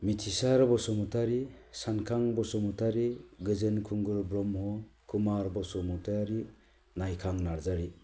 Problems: low volume